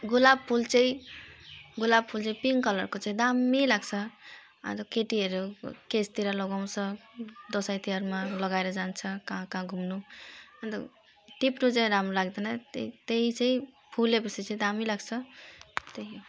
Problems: background sounds at intervals